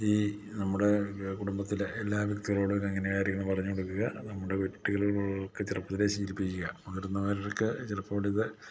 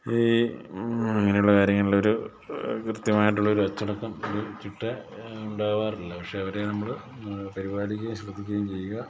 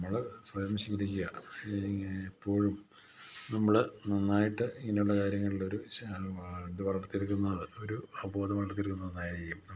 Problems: constant background noise, low volume